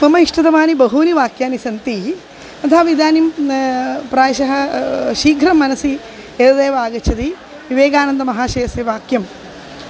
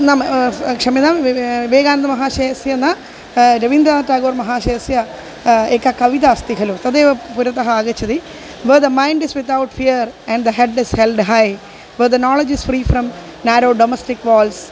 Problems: constant background noise